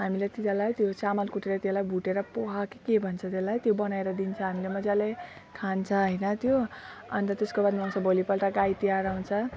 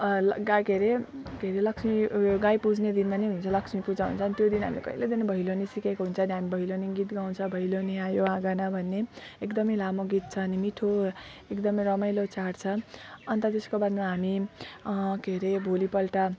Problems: none marked